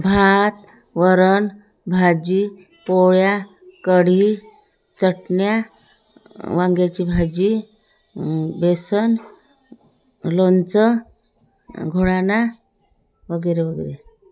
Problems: none marked